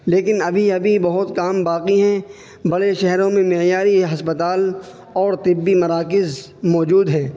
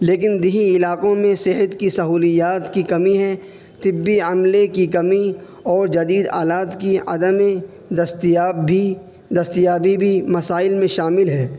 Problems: constant background noise